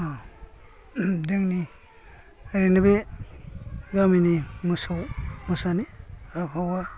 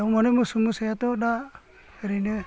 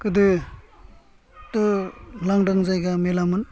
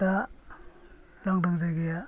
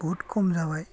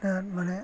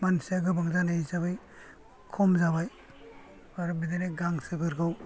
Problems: low volume